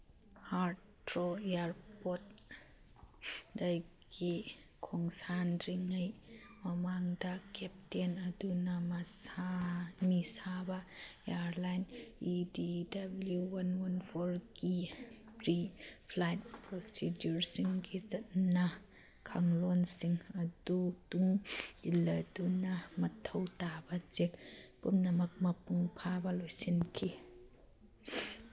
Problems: background conversations at intervals